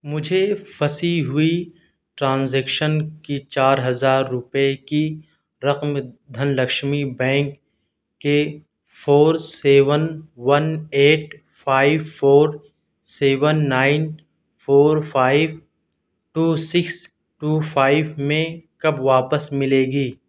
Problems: none marked